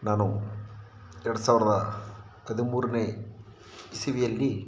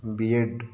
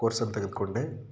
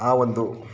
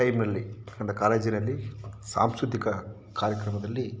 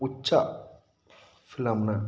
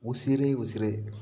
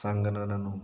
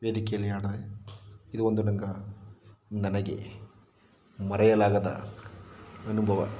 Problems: background sounds at intervals